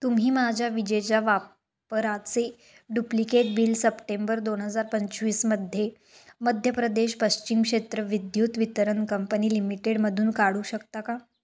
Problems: none marked